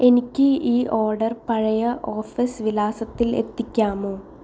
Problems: none marked